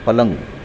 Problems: constant background noise, background conversations at intervals